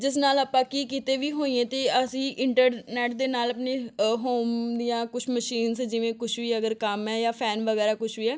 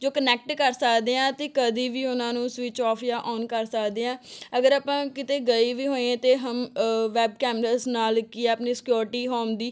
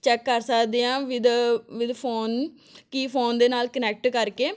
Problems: background sounds at intervals